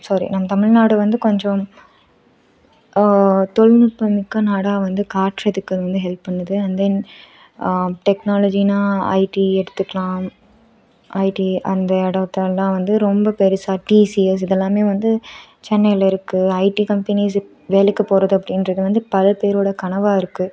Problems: none marked